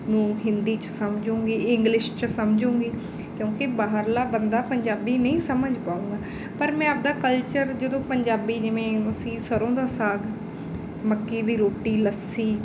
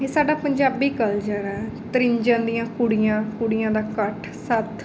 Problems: none marked